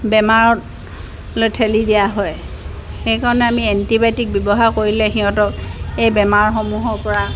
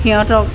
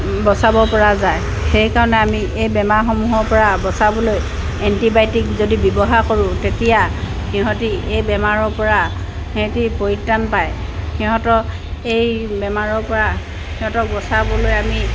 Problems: constant background noise